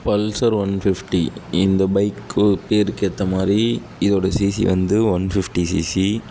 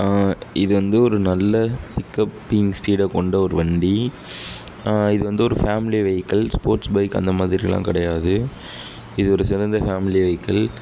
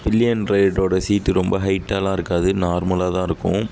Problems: background sounds at intervals